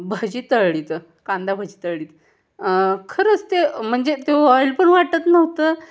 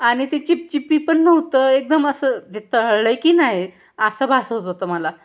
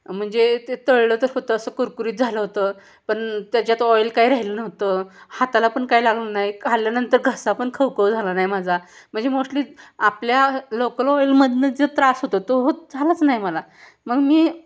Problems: constant background noise, continuous background conversations